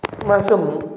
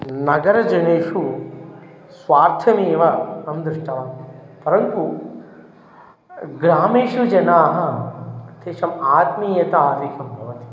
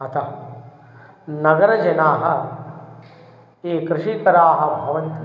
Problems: none marked